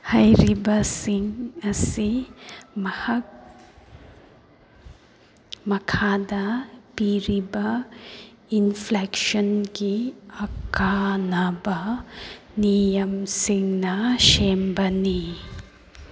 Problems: background sounds at intervals